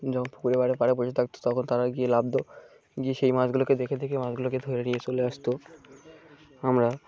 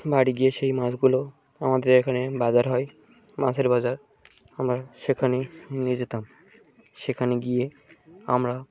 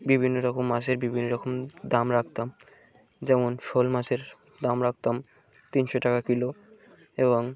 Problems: background sounds at intervals